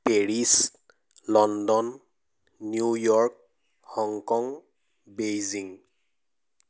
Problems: none marked